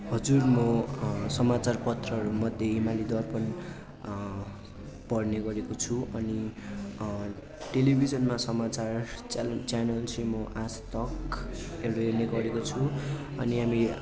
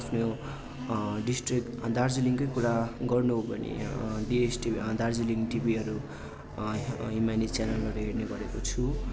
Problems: constant background noise